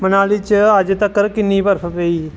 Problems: constant background noise